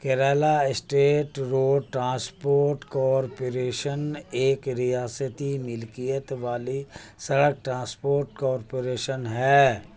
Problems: constant background noise